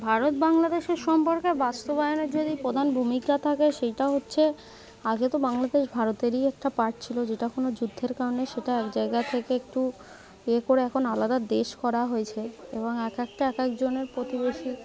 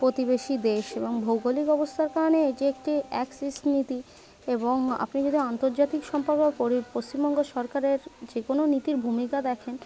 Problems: constant background noise, continuous background conversations